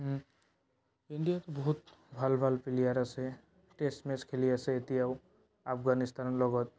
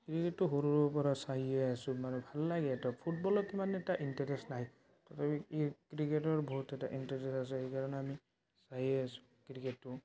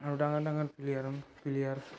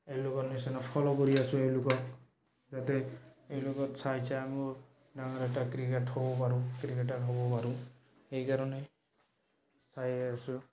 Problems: background sounds at intervals, background conversations at intervals